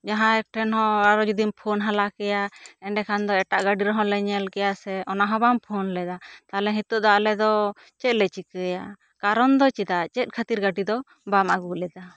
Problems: none marked